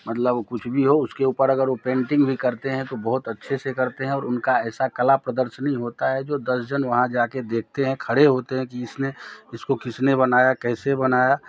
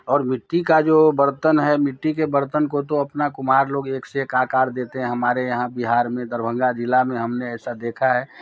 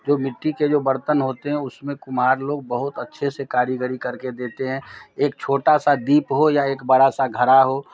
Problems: none marked